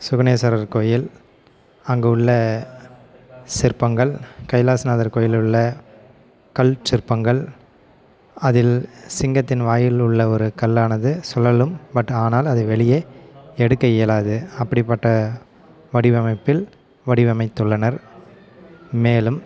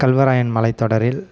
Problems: background sounds at intervals, background conversations at intervals